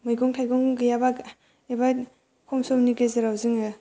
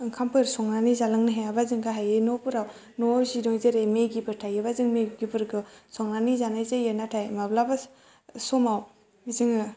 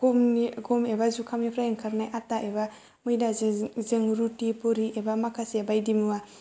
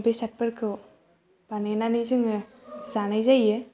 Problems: low volume